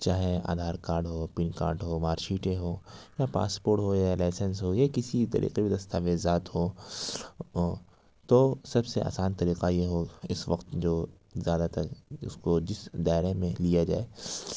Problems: none marked